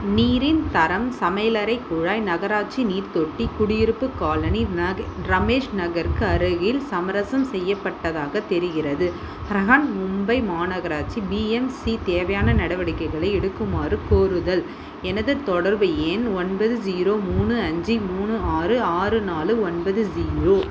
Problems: constant background noise